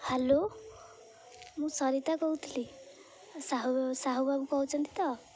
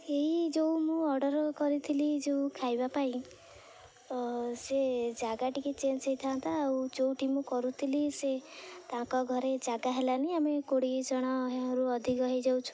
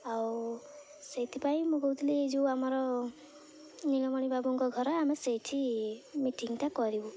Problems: low volume